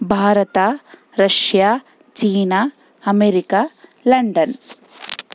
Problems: background sounds at intervals